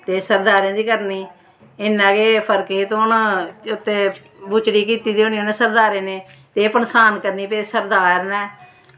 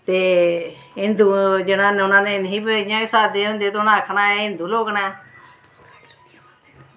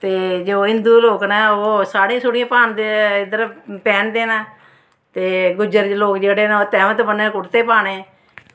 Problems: constant background noise